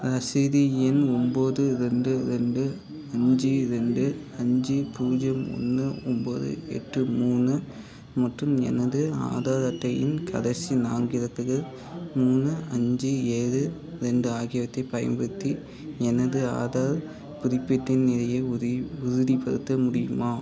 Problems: background conversations at intervals